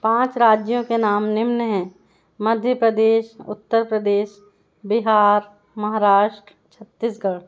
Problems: none marked